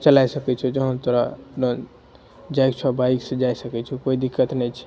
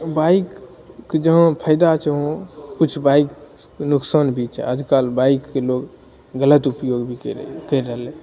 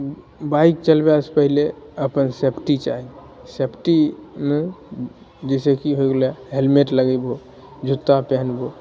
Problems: none marked